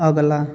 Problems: background sounds at intervals